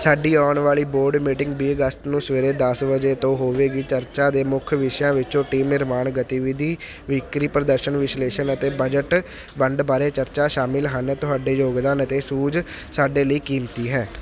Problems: none marked